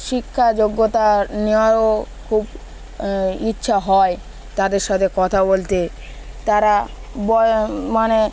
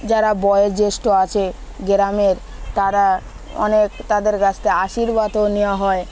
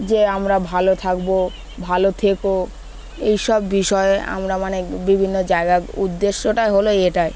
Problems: constant background noise